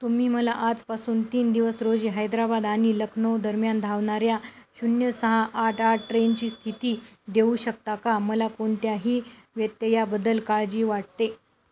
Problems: none marked